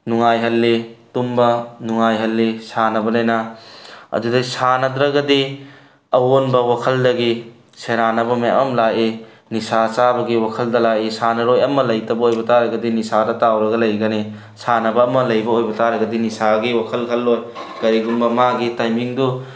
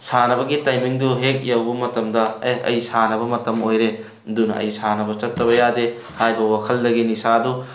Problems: none marked